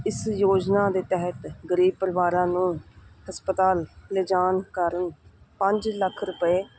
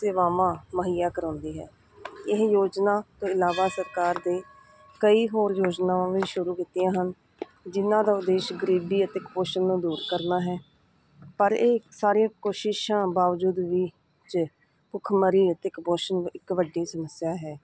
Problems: none marked